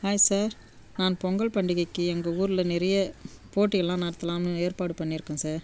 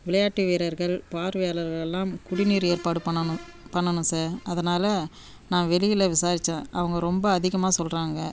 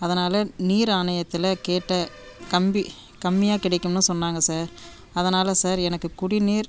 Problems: background sounds at intervals